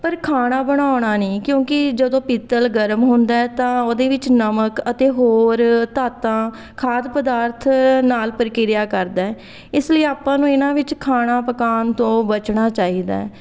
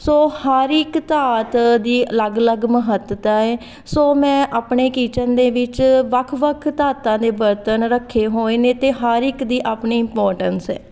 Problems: background conversations at intervals